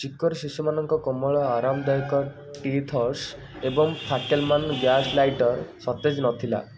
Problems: background sounds at intervals